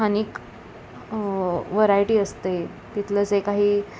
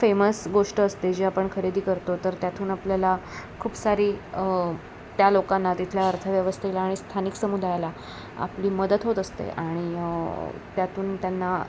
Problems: constant background noise